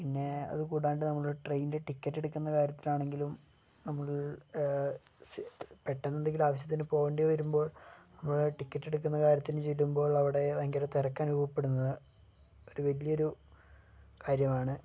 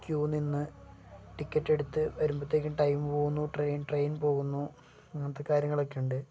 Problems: low volume